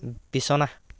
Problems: none marked